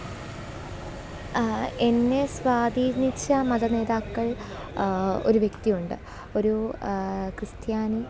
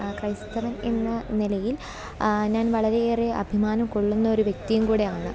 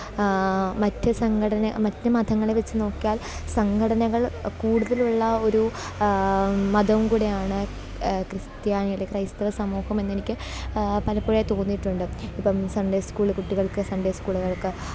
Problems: none marked